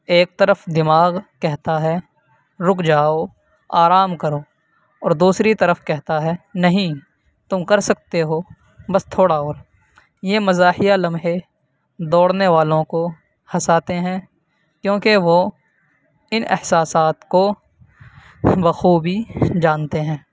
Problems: constant background noise